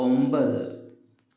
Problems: none marked